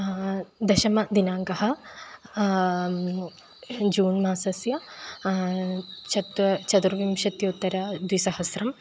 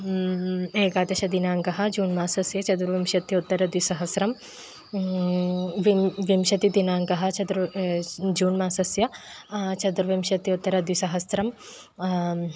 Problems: constant background noise